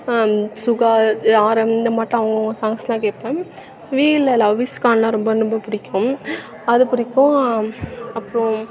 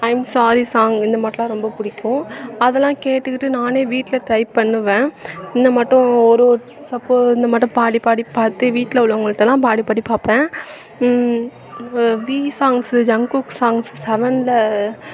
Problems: none marked